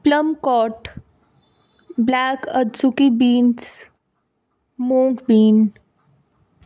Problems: background sounds at intervals